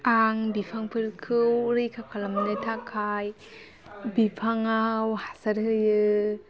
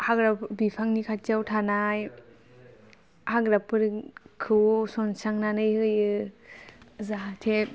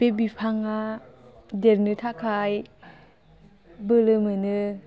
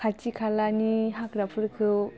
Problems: none marked